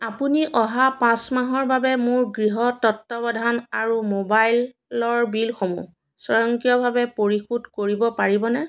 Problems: none marked